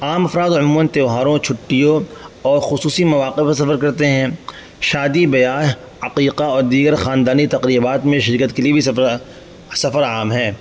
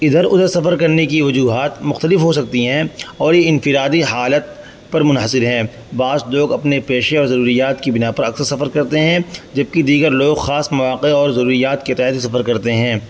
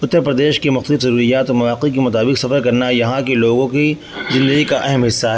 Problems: constant background noise